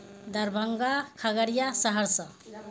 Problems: constant background noise